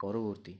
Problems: low volume